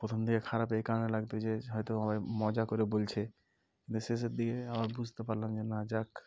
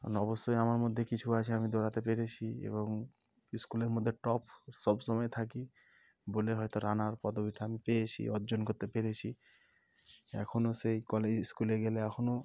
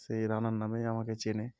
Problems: background sounds at intervals